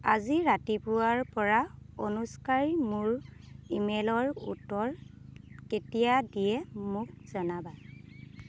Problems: constant background noise